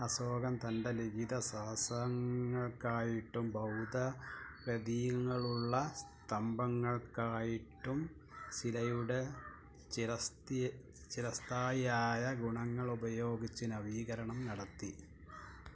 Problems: background conversations at intervals